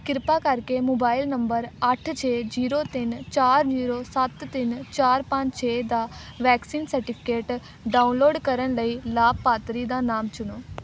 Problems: constant background noise